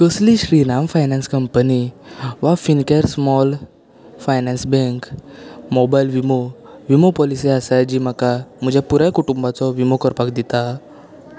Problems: constant background noise